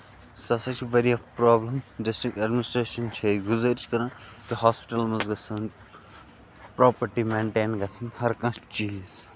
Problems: constant background noise